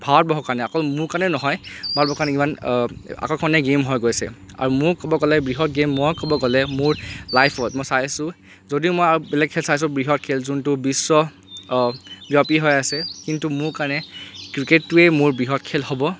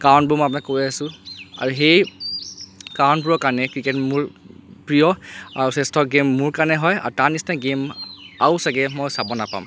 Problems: none marked